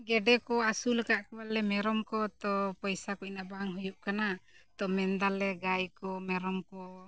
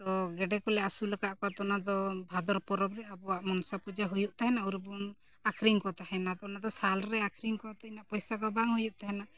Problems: none marked